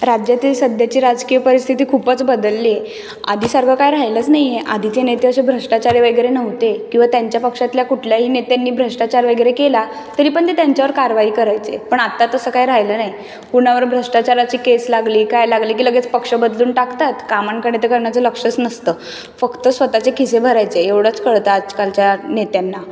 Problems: background sounds at intervals